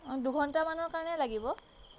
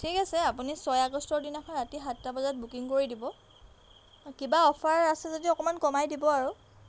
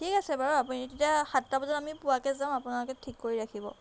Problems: background sounds at intervals